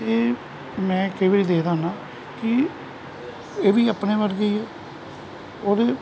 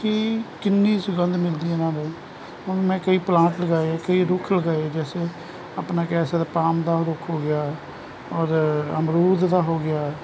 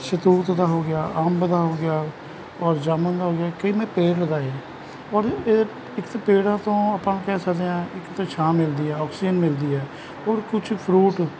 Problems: none marked